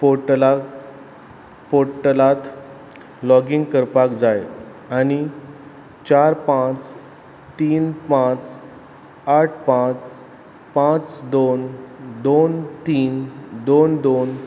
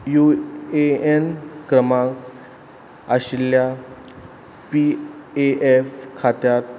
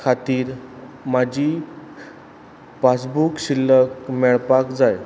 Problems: background sounds at intervals